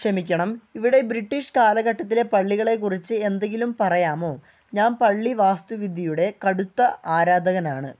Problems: none marked